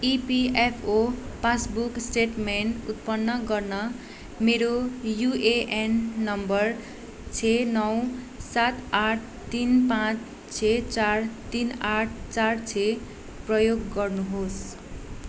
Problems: constant background noise